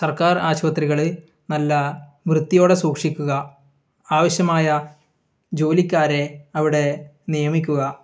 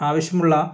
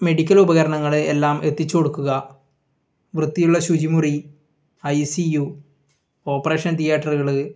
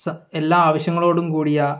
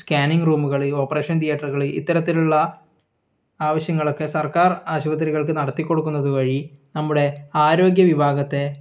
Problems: none marked